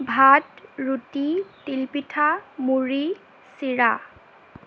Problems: constant background noise